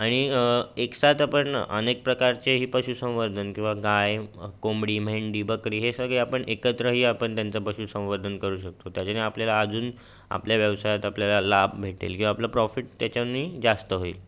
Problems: background sounds at intervals